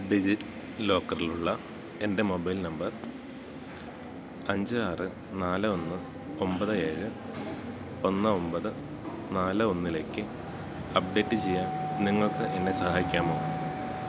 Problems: background sounds at intervals